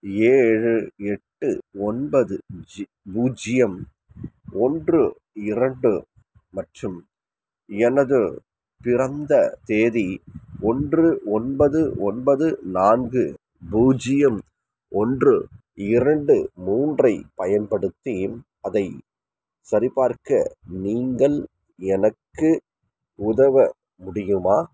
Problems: background sounds at intervals, background conversations at intervals